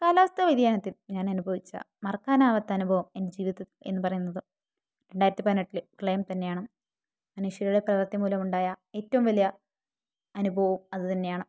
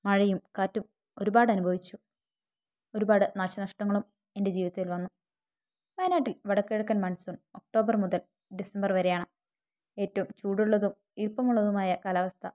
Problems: none marked